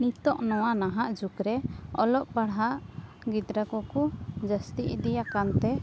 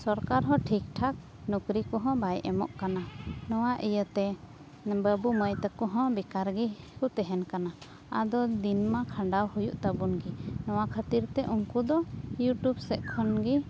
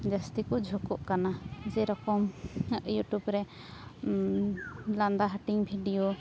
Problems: none marked